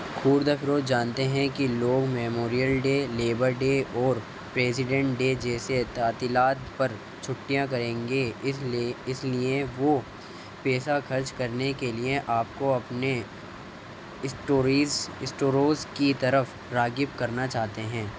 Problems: constant background noise, low volume